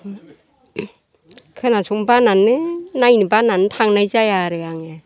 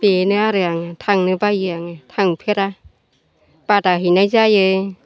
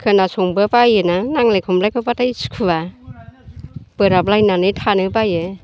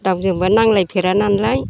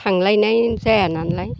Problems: none marked